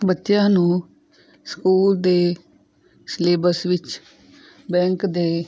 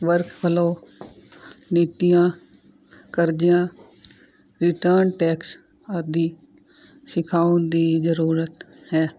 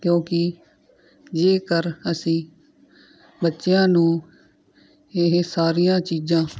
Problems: none marked